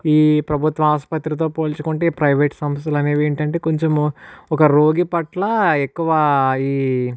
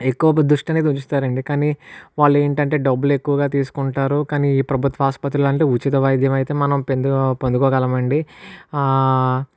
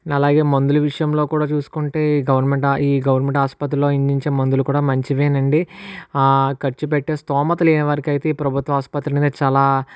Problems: none marked